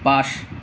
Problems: none marked